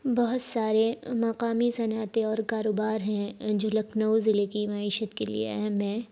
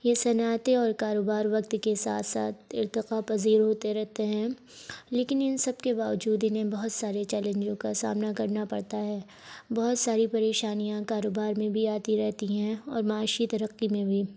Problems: background sounds at intervals